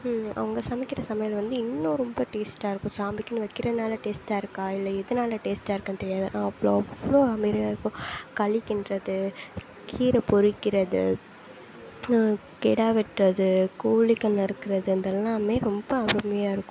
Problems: constant background noise